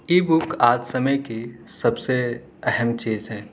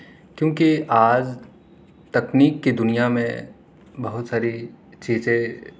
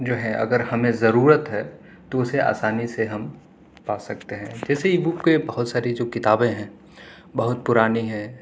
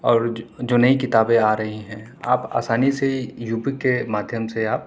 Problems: none marked